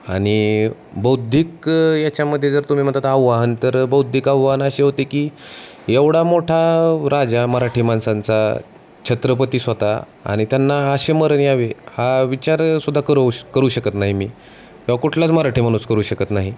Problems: constant background noise, continuous background conversations